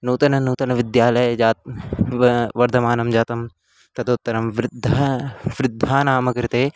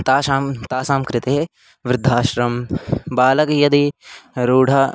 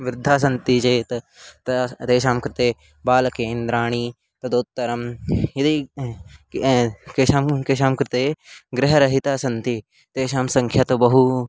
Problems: constant background noise